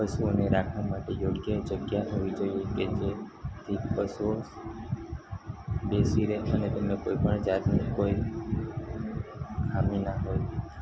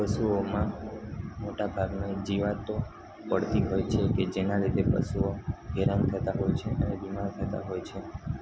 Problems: constant background noise